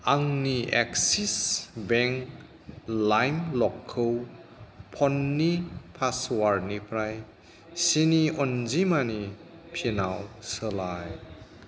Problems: background sounds at intervals